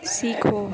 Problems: constant background noise